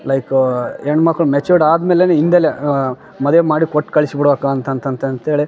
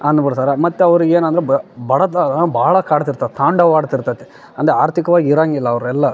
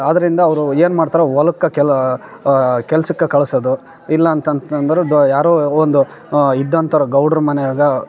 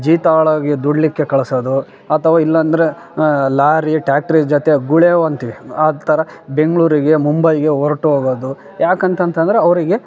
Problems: background sounds at intervals, background conversations at intervals